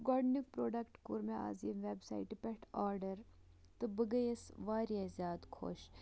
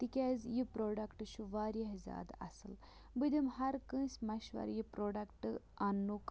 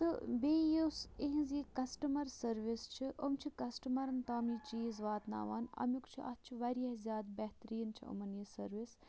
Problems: none marked